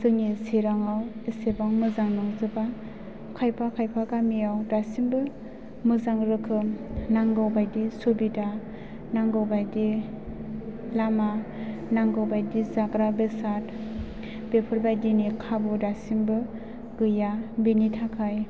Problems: background sounds at intervals